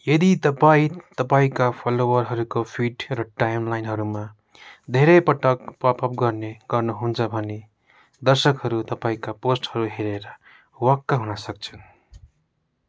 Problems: constant background noise